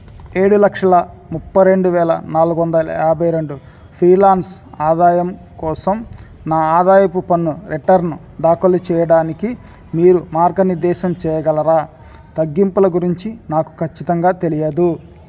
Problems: constant background noise